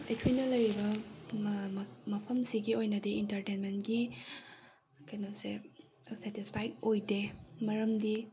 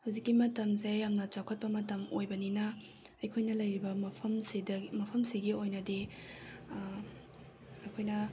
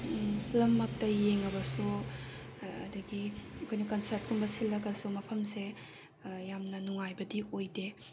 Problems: background sounds at intervals